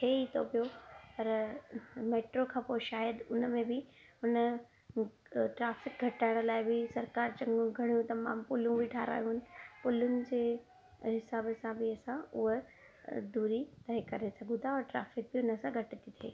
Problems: background sounds at intervals